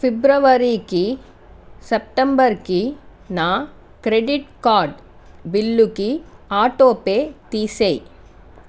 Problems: constant background noise